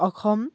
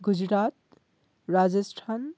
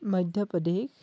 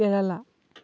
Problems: none marked